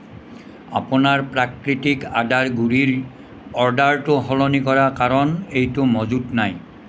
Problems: constant background noise